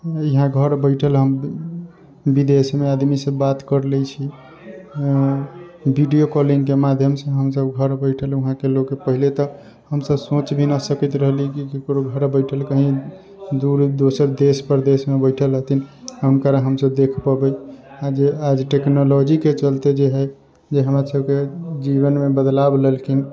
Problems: constant background noise